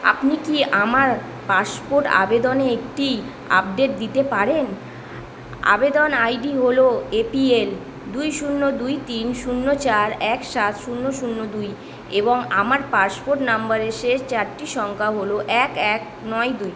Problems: constant background noise